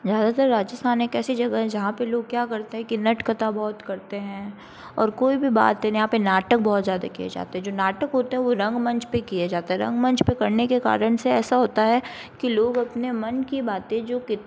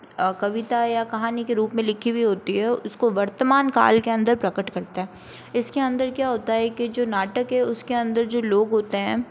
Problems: constant background noise